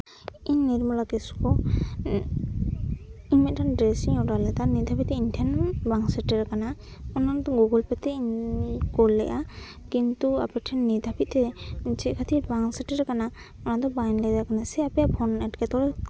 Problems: constant background noise, background conversations at intervals